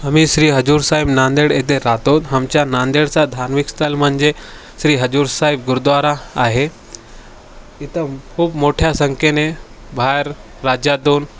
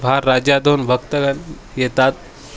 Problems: constant background noise, background conversations at intervals